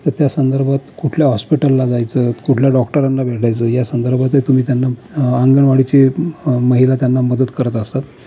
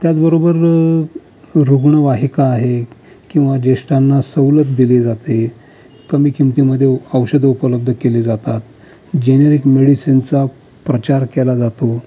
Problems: constant background noise, continuous background conversations